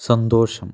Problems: low volume